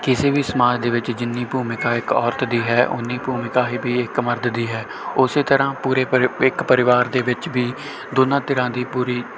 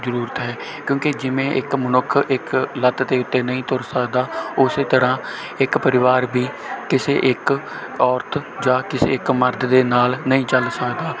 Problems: none marked